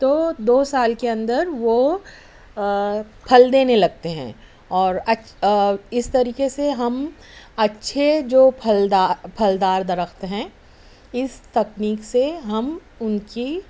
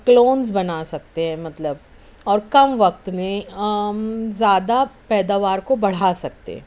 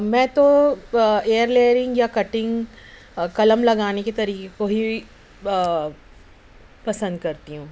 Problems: none marked